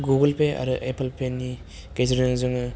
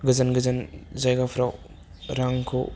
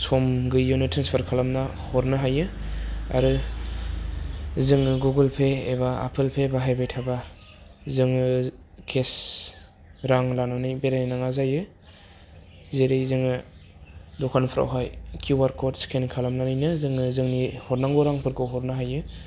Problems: none marked